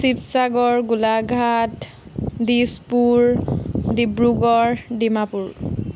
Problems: none marked